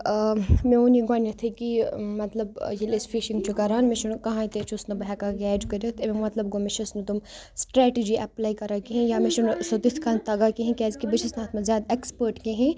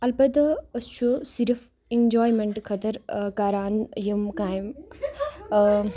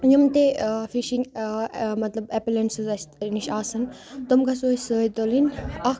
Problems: continuous background conversations